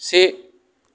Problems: none marked